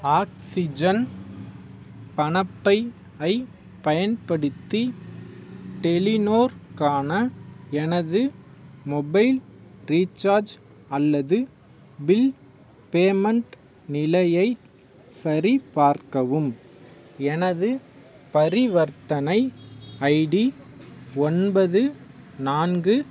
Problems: background sounds at intervals